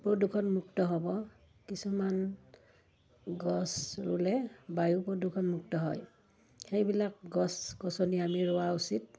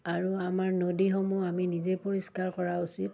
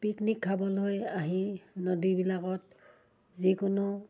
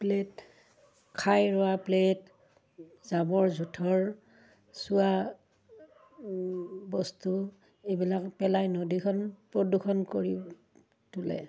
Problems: none marked